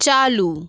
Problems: background sounds at intervals